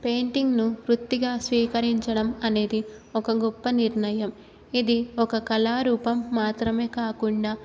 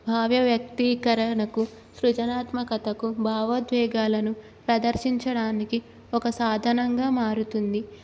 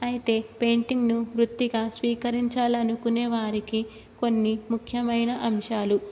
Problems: none marked